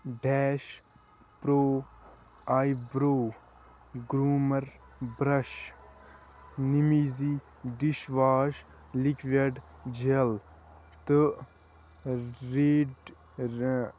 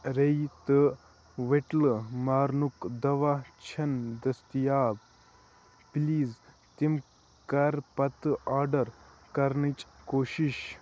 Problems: constant background noise